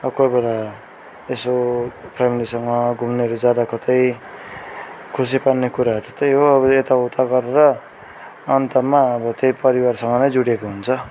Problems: continuous background conversations